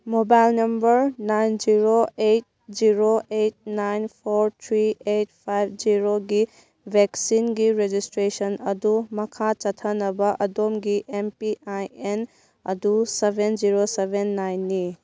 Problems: none marked